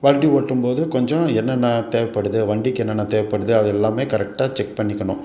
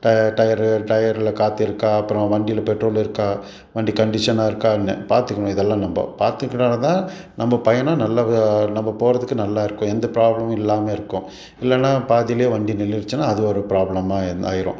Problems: background sounds at intervals